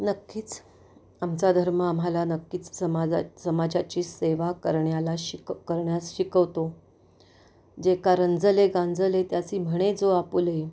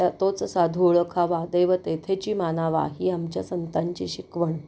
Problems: none marked